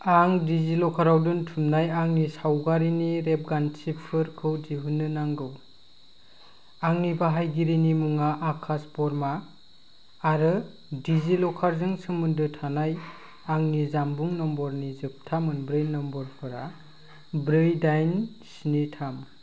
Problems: constant background noise